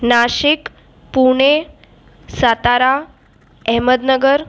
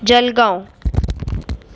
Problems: constant background noise